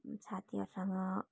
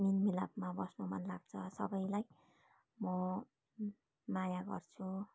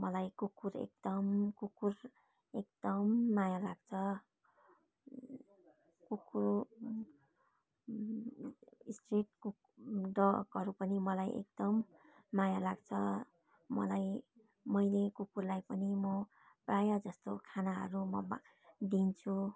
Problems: background conversations at intervals